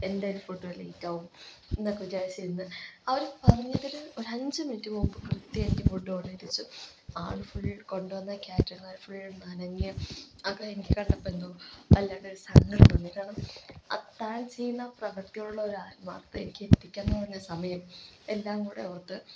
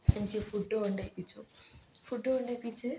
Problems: low volume